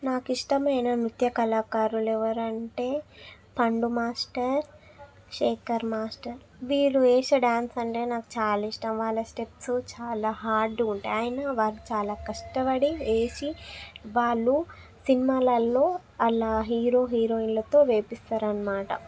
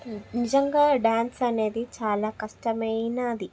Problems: background sounds at intervals